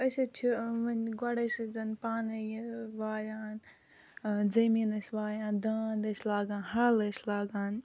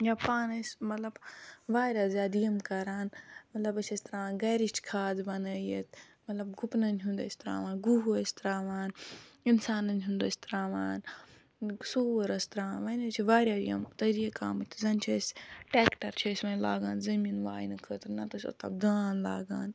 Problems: background sounds at intervals